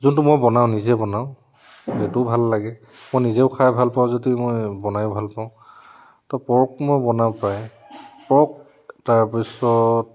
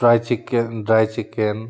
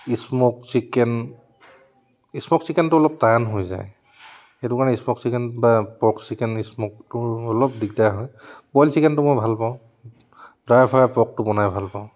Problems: none marked